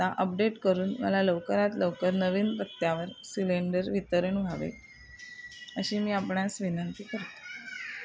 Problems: constant background noise, continuous background conversations